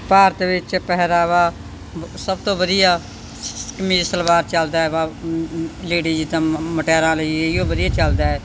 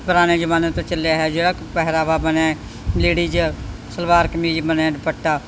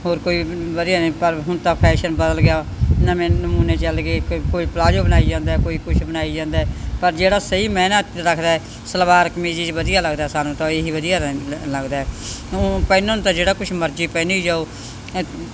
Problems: background sounds at intervals